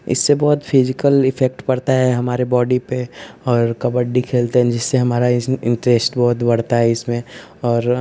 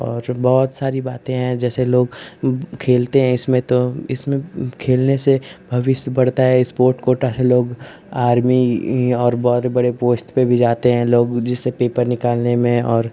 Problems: constant background noise